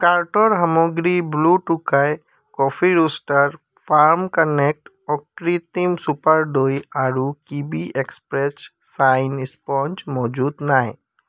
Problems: constant background noise